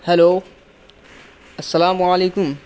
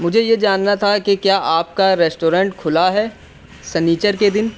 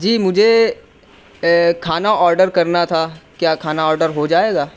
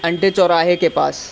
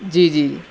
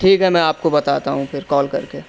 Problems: constant background noise, continuous background conversations